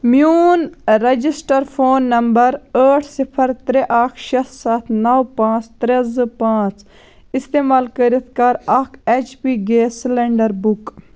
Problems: none marked